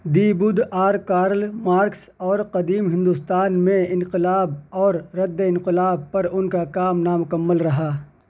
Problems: none marked